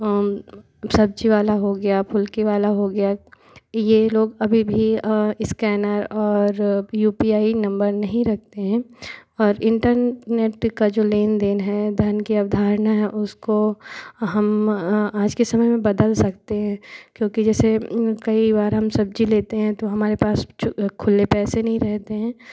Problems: none marked